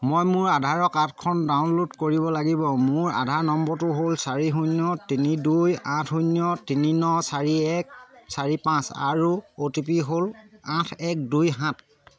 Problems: none marked